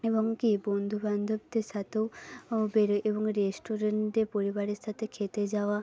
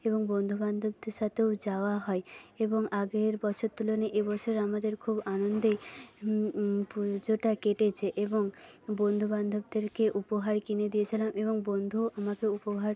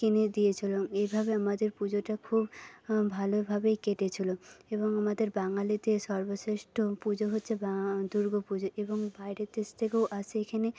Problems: background sounds at intervals, low volume